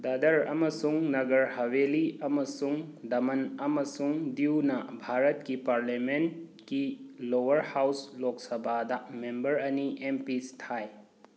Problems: none marked